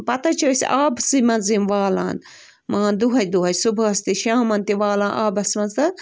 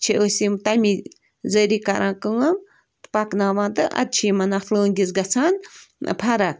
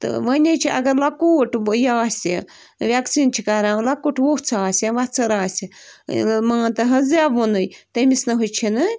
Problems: constant background noise